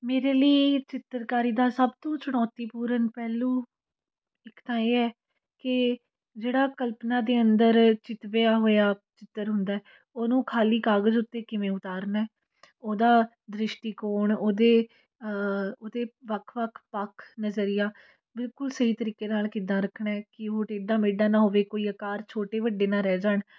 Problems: continuous background conversations